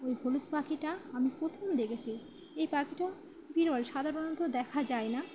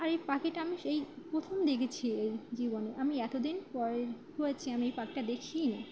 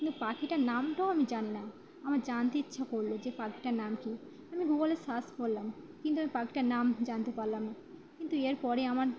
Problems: background sounds at intervals